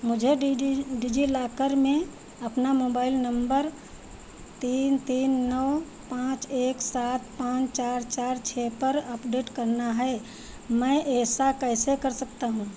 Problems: none marked